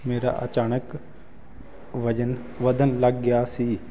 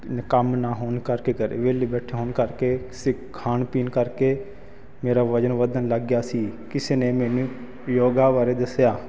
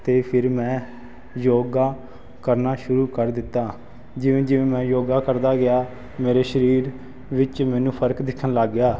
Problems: constant background noise